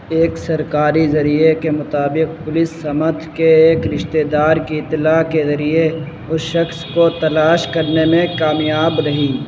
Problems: constant background noise